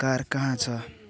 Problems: constant background noise